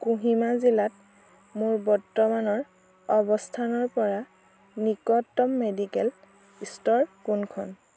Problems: constant background noise